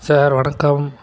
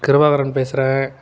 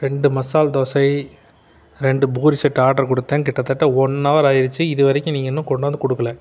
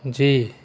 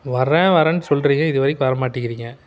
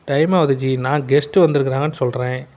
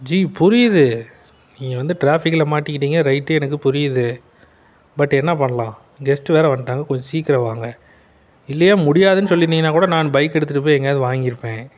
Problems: constant background noise